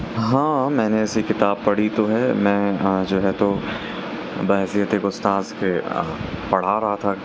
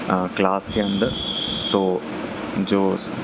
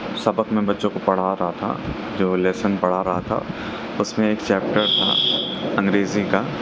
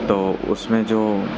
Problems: constant background noise